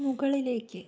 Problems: low volume